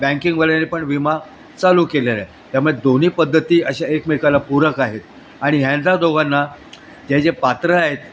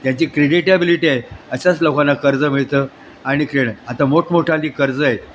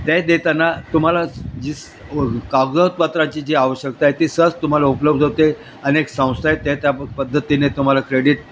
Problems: constant background noise